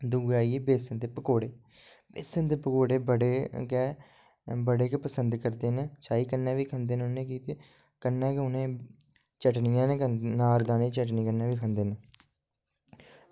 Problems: low volume